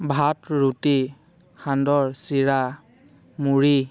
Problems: constant background noise